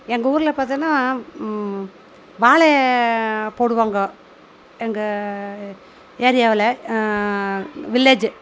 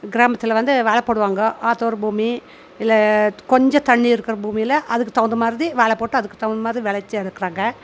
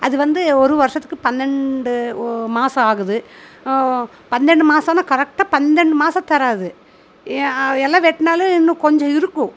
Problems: constant background noise